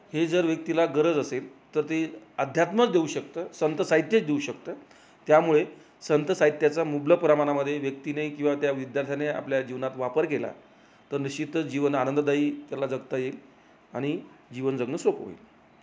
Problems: background sounds at intervals